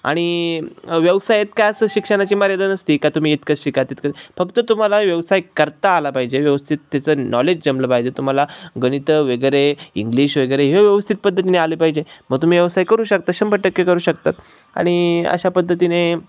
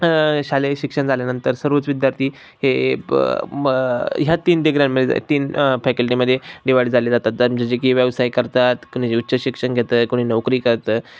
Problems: none marked